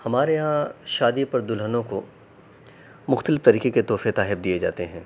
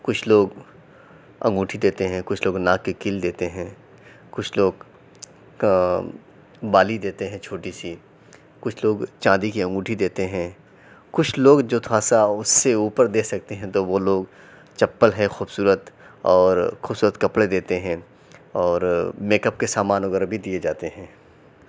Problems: none marked